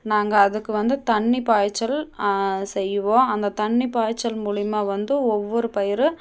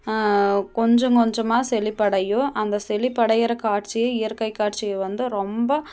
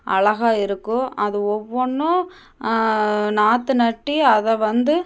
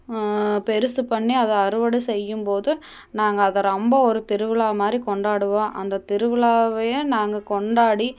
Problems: none marked